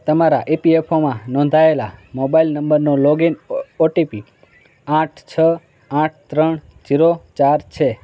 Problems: constant background noise, continuous background conversations